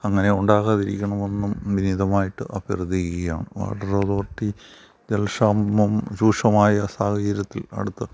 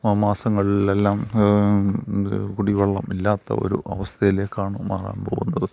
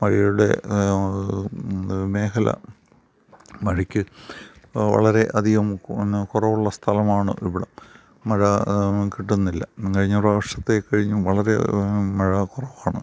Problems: none marked